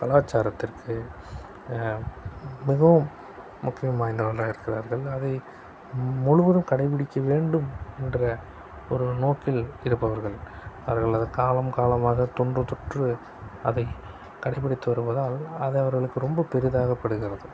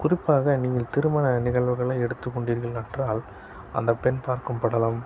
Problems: constant background noise